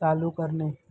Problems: none marked